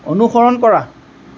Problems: constant background noise